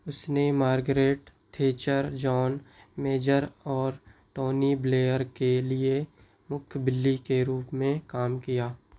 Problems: background sounds at intervals